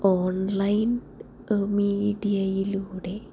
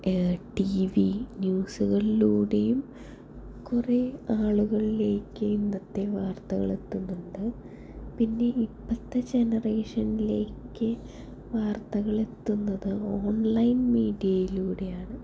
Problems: low volume